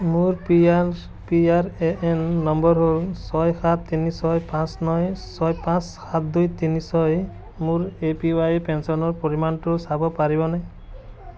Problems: constant background noise